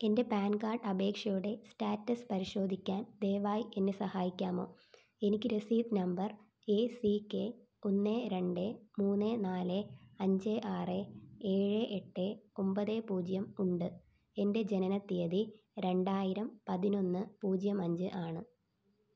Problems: low volume